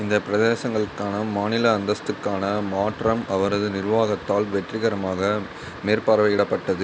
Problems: constant background noise